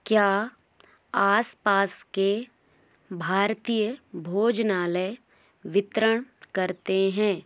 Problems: constant background noise